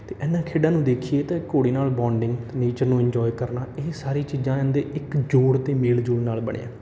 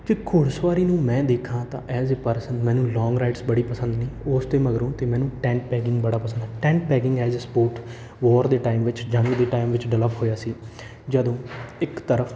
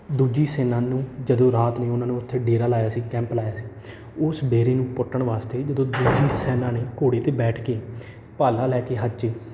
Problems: none marked